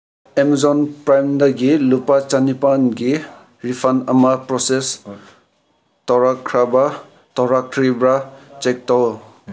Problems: none marked